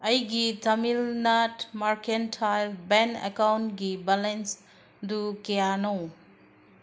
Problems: background sounds at intervals